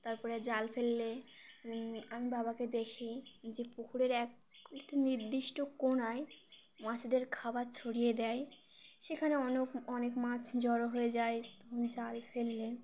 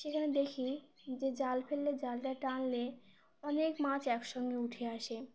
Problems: constant background noise